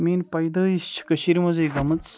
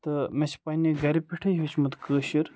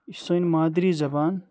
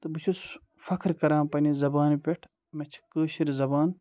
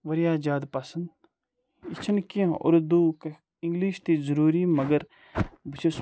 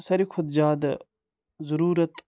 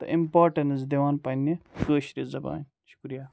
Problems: background sounds at intervals